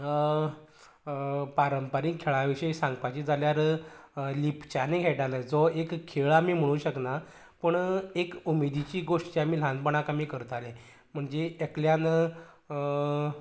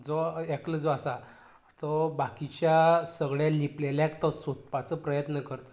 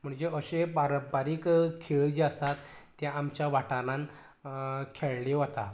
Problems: background sounds at intervals